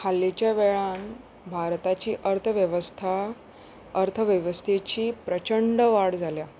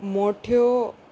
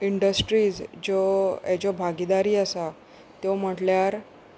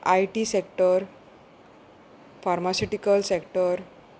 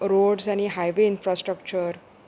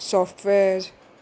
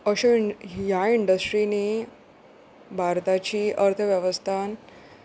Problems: constant background noise